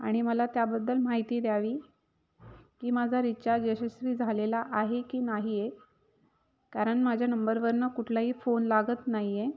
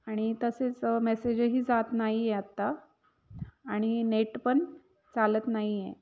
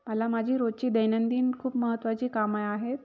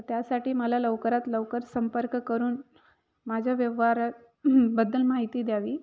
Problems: background sounds at intervals